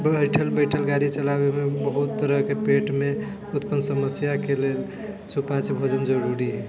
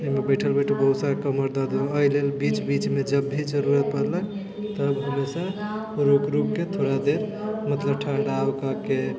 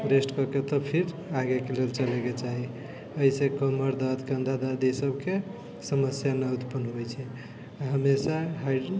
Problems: continuous background conversations